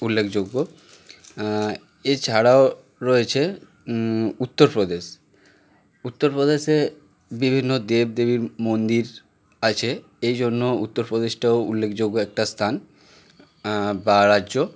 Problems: constant background noise